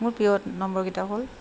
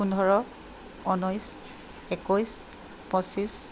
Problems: constant background noise